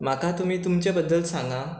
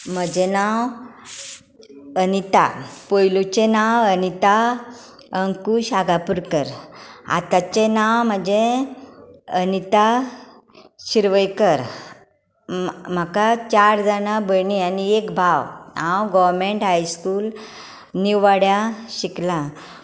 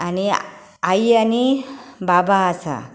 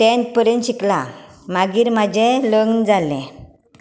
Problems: constant background noise